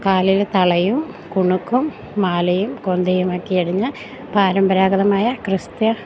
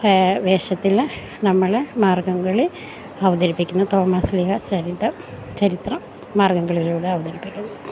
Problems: none marked